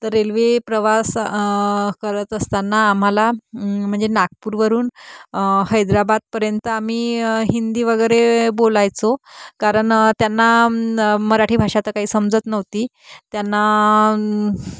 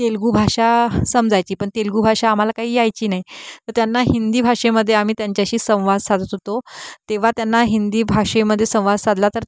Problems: none marked